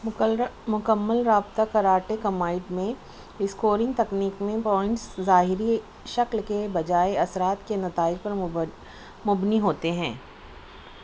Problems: constant background noise, low volume